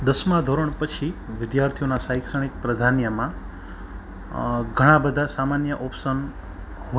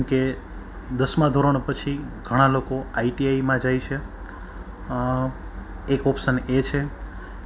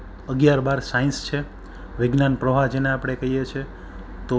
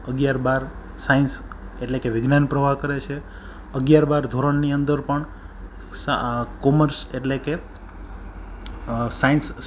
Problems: background sounds at intervals